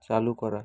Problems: none marked